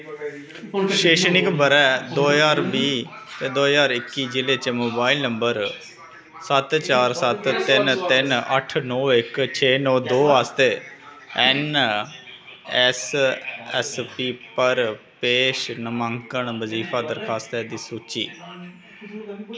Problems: constant background noise